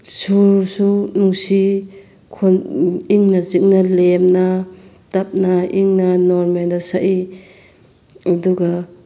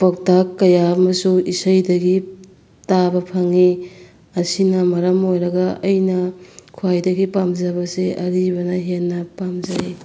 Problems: background sounds at intervals